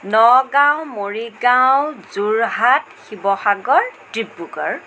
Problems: constant background noise